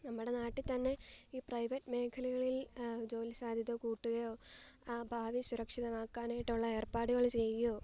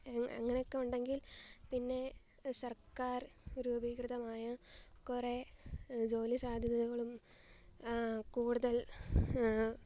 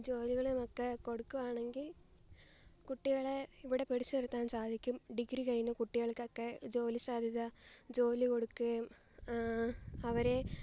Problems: low volume